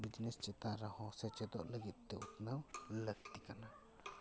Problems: background sounds at intervals, background conversations at intervals